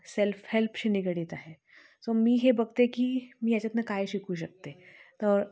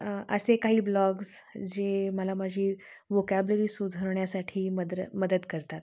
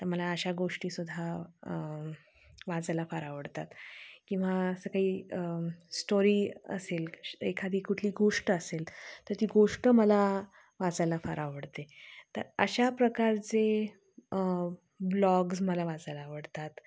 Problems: none marked